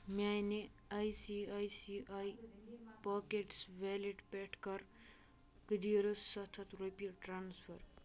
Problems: none marked